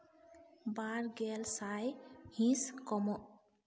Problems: echo, low volume